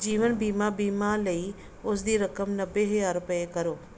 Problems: background sounds at intervals